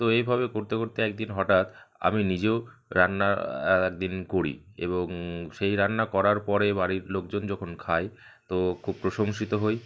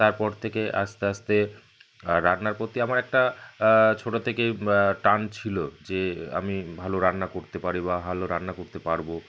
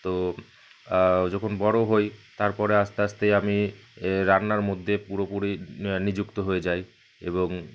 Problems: constant background noise